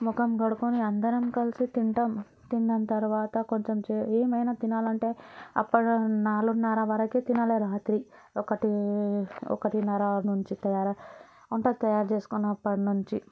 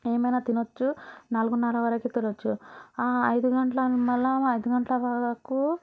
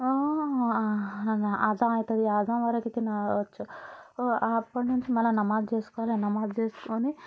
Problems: background sounds at intervals